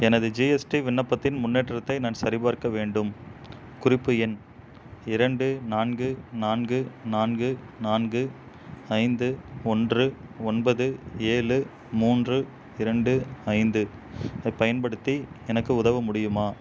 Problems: none marked